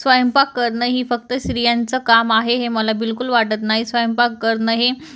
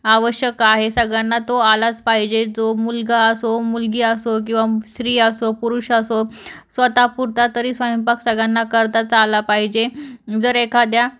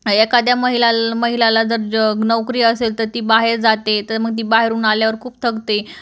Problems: none marked